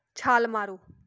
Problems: none marked